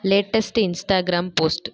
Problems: echo